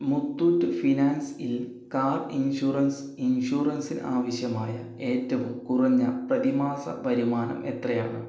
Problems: low volume